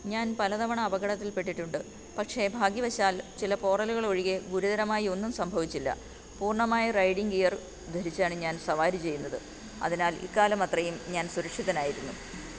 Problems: constant background noise, low volume